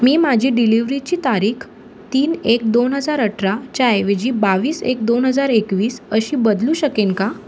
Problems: none marked